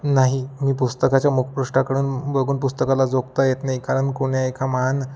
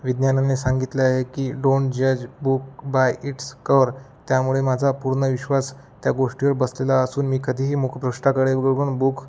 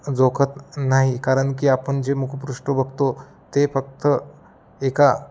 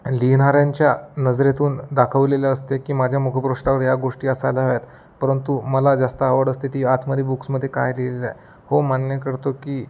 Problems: none marked